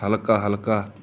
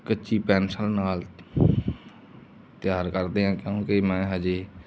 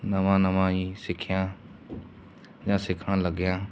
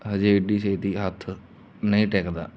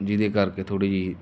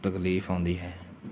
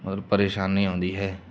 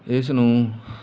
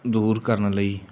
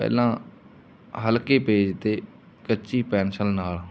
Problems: none marked